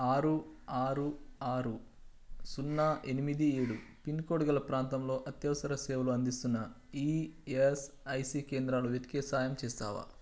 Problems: constant background noise